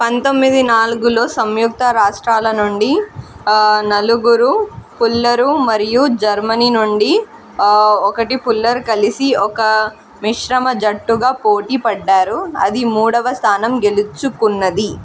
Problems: constant background noise